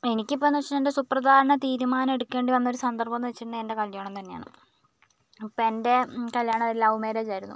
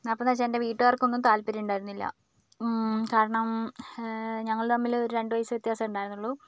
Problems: none marked